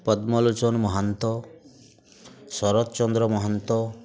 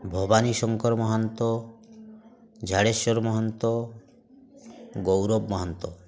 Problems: constant background noise